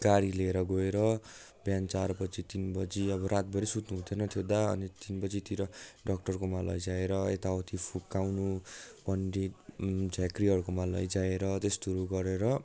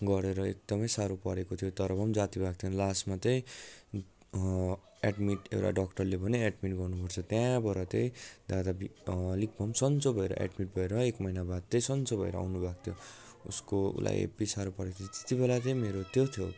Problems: continuous background conversations